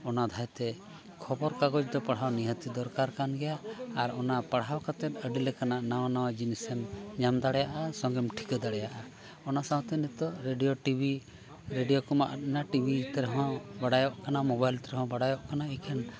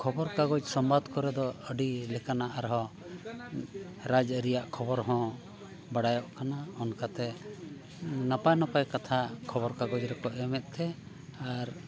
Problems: continuous background conversations